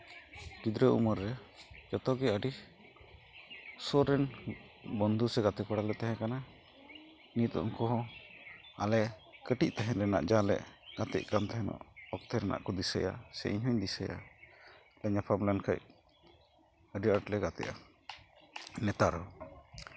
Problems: constant background noise